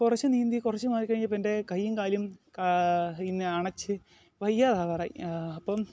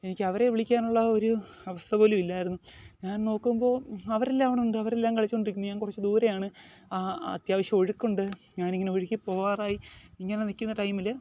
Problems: background sounds at intervals